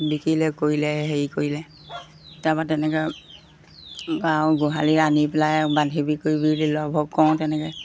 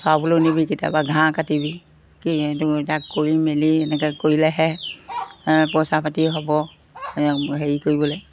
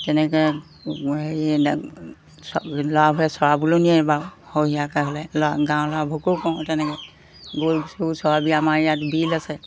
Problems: constant background noise